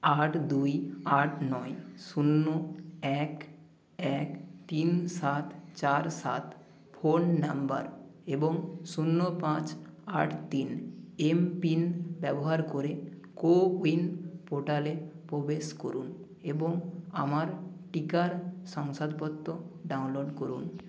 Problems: constant background noise